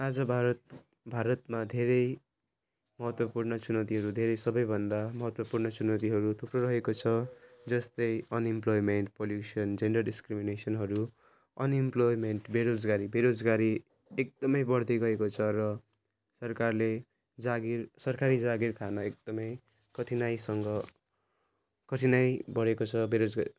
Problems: none marked